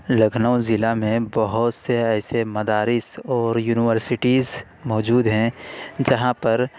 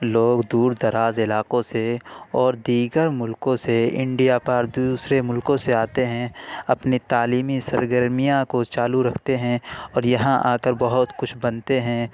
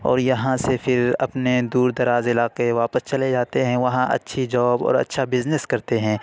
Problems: none marked